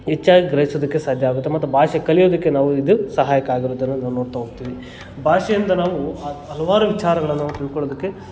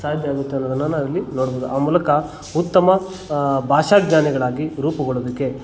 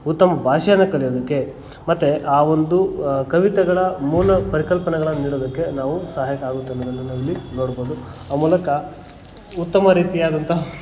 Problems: background conversations at intervals